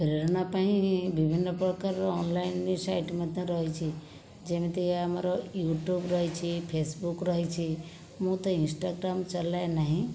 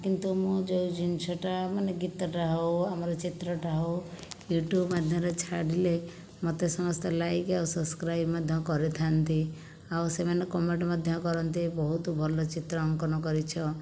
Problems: background sounds at intervals